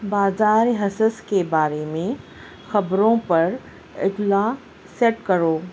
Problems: constant background noise